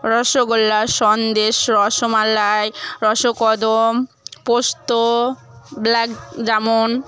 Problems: none marked